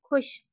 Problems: none marked